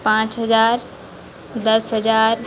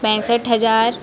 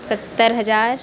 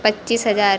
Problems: constant background noise